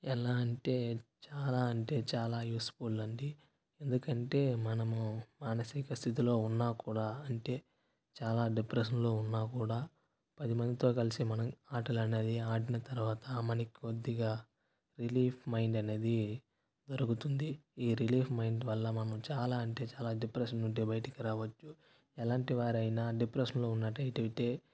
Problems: background sounds at intervals, low volume